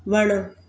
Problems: background sounds at intervals